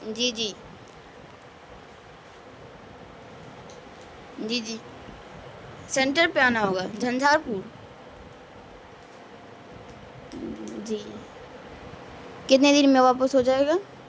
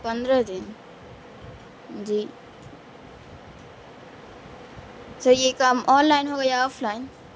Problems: constant background noise